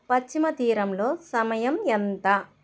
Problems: constant background noise